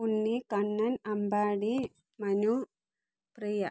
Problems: low volume